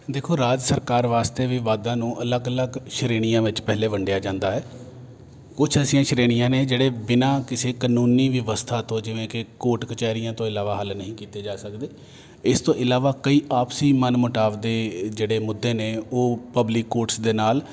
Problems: constant background noise